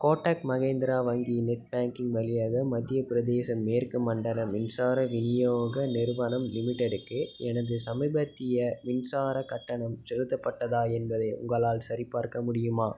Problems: background sounds at intervals